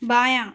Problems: none marked